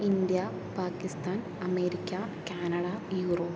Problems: low volume